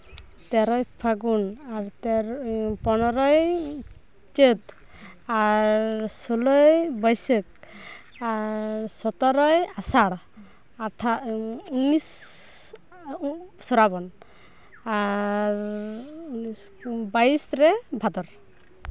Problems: none marked